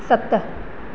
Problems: constant background noise, echo